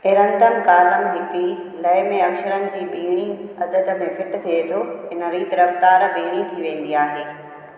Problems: constant background noise, echo